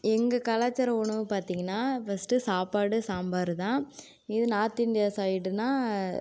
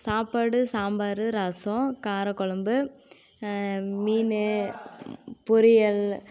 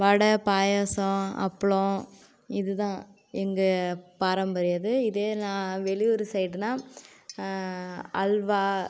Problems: constant background noise